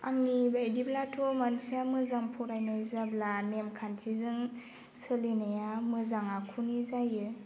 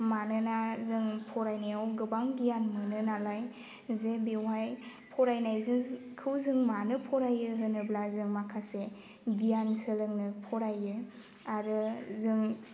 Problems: constant background noise